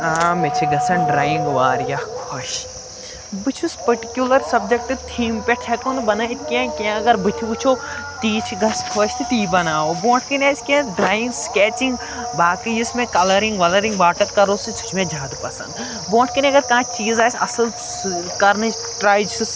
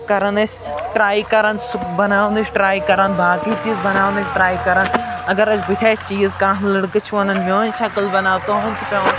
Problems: background sounds at intervals